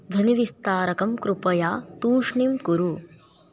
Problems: background conversations at intervals